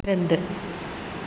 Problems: constant background noise